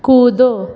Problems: constant background noise, echo